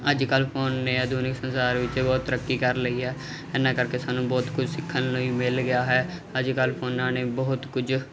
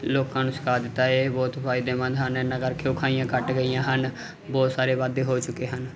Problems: constant background noise